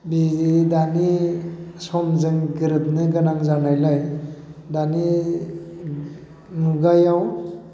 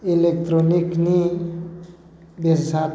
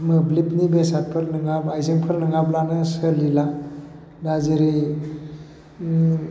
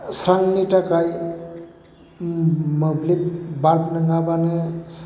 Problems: constant background noise